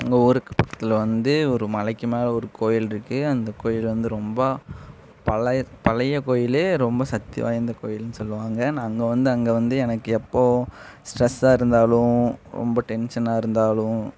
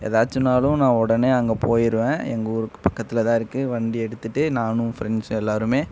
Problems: none marked